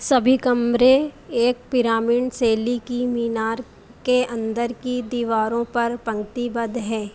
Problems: constant background noise